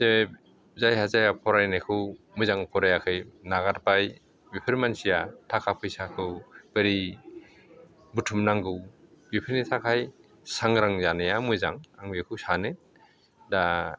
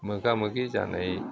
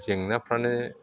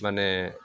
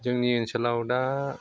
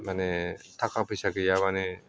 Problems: none marked